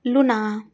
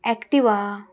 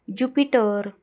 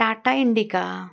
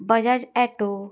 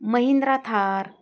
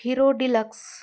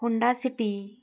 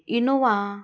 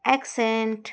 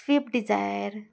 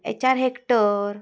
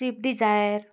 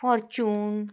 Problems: constant background noise